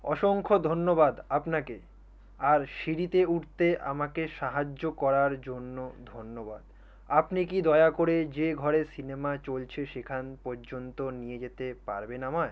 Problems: none marked